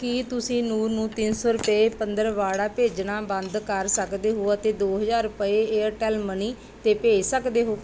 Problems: background sounds at intervals